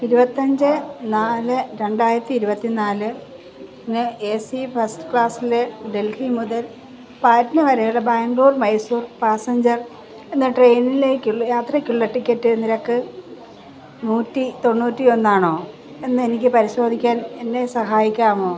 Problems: constant background noise